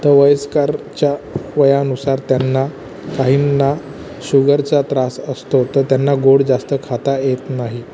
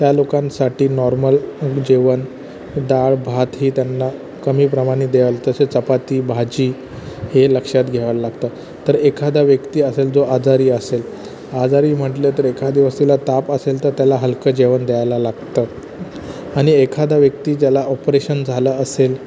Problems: constant background noise